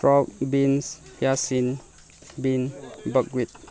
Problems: background sounds at intervals